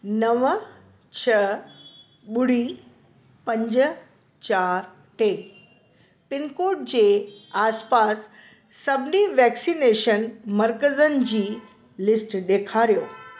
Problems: constant background noise, echo